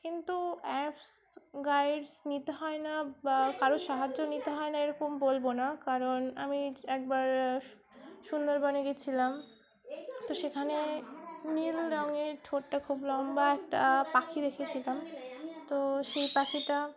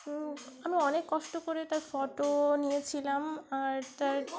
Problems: constant background noise, continuous background conversations